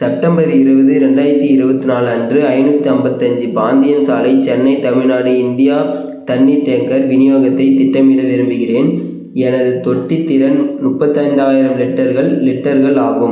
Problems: none marked